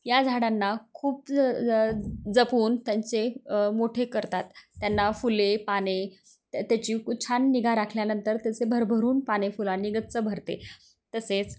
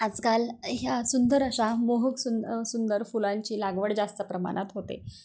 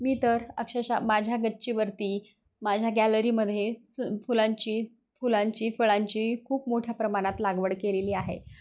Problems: constant background noise